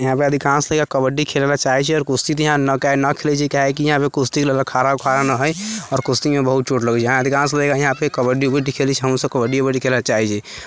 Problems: constant background noise